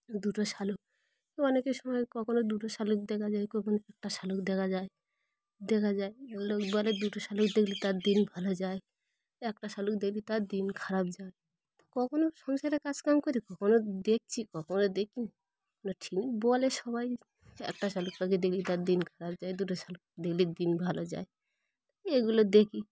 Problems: none marked